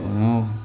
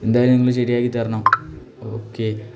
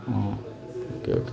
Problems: background sounds at intervals